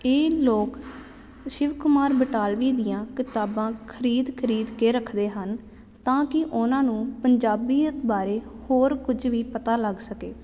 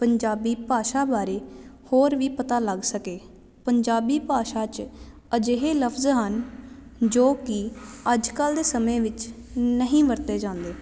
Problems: none marked